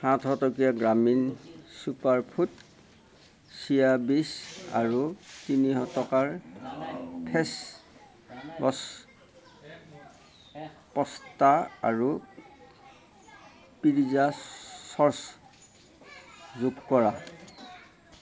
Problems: background sounds at intervals, continuous background conversations